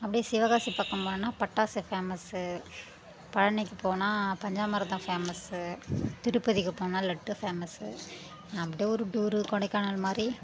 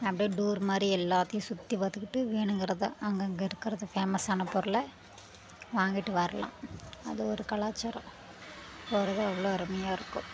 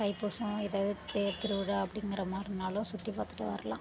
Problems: constant background noise